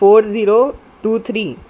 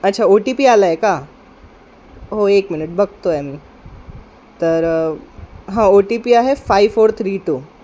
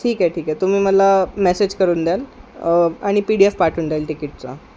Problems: background sounds at intervals